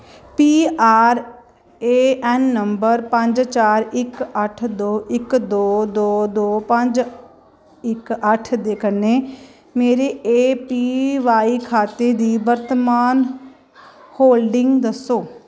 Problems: none marked